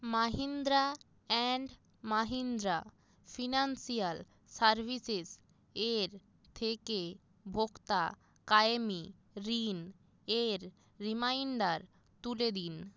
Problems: none marked